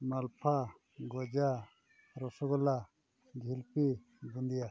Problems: none marked